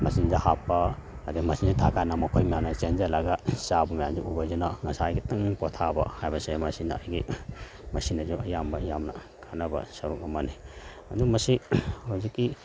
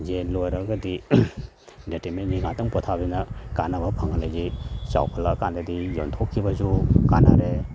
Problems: none marked